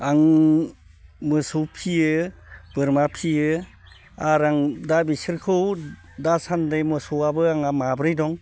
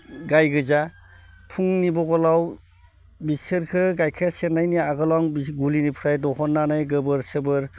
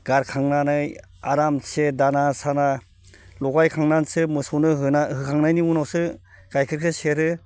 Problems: none marked